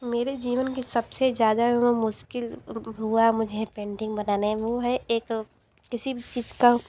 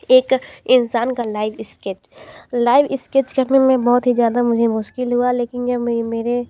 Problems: background sounds at intervals, background conversations at intervals